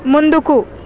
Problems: constant background noise